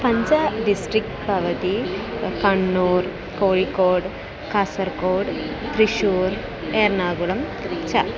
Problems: none marked